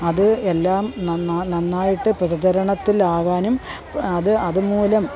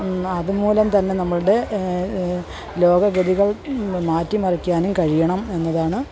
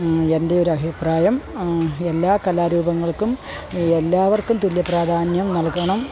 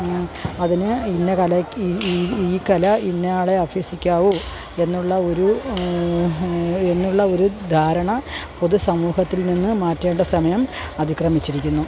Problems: continuous background conversations